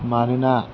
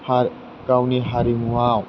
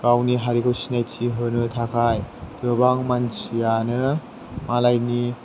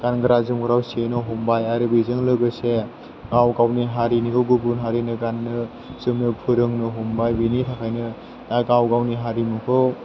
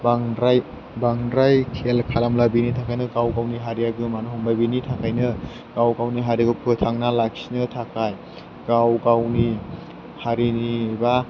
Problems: constant background noise